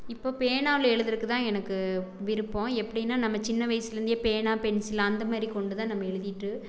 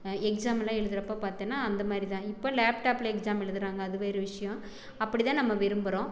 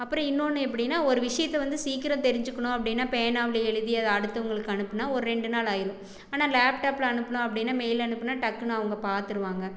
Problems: background conversations at intervals